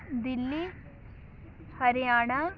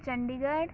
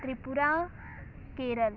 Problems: background sounds at intervals, background conversations at intervals